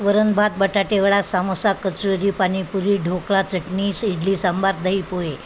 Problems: constant background noise